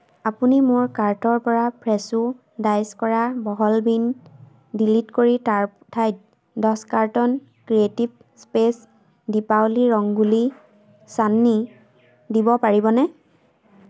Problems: constant background noise